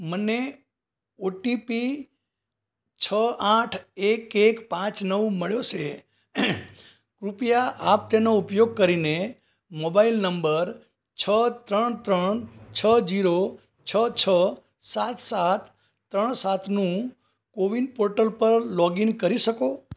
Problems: background sounds at intervals